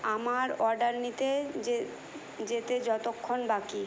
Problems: constant background noise